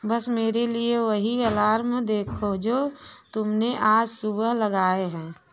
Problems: none marked